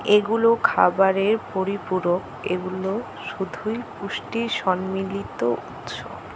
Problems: constant background noise